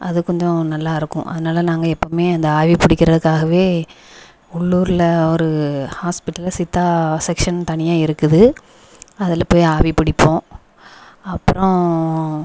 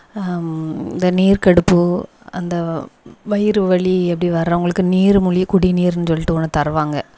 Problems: background sounds at intervals, echo